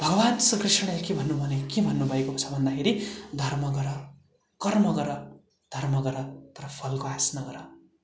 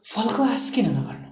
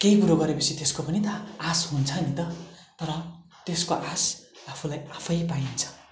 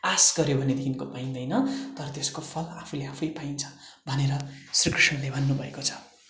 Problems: constant background noise